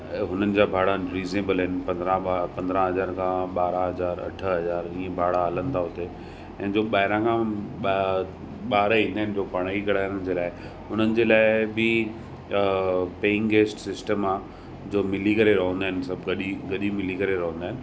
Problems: constant background noise